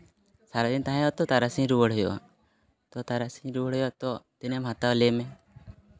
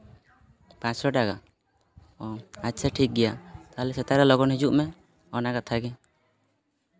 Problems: constant background noise